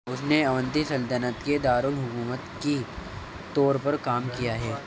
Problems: constant background noise, background conversations at intervals, low volume